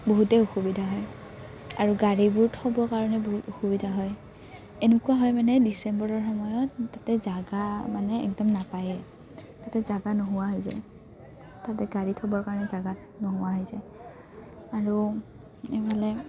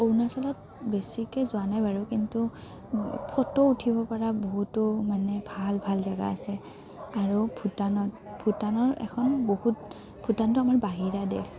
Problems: constant background noise, background conversations at intervals